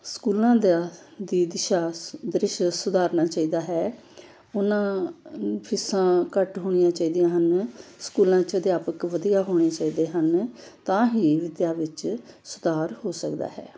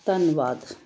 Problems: background sounds at intervals